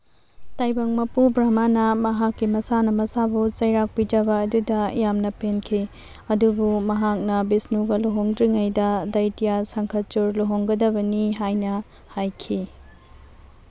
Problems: constant background noise